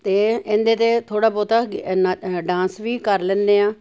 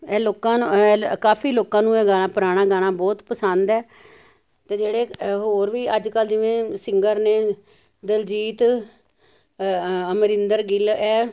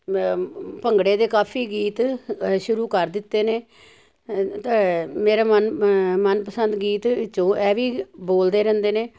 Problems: none marked